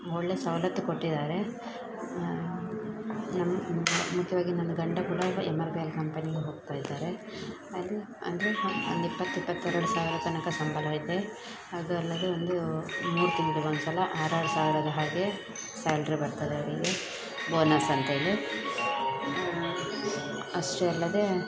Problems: background sounds at intervals